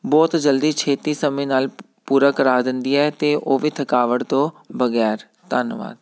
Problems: none marked